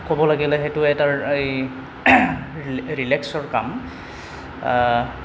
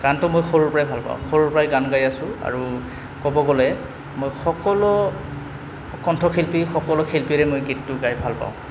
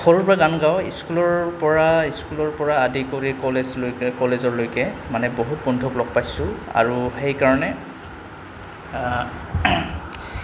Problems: none marked